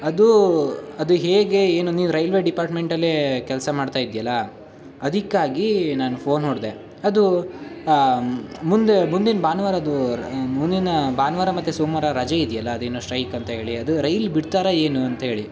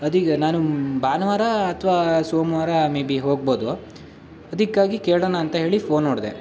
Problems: none marked